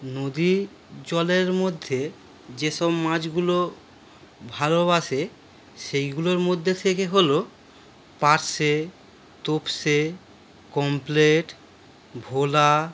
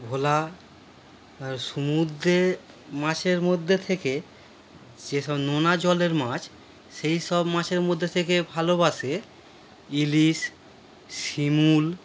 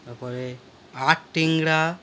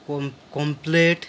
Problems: none marked